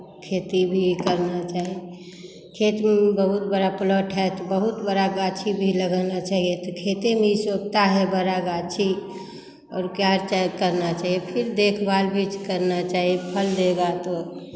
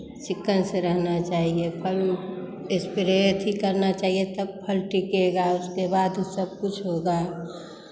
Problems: none marked